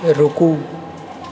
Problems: background sounds at intervals, continuous background conversations